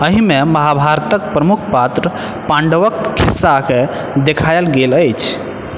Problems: constant background noise